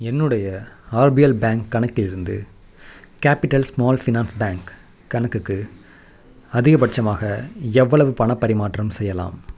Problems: none marked